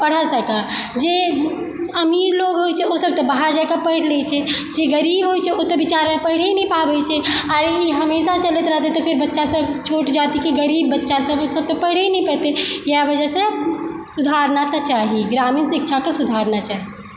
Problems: constant background noise